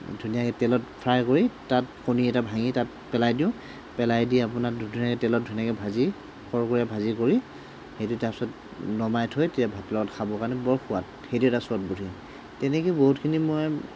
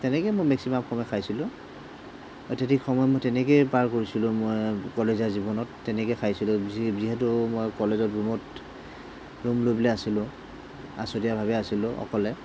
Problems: none marked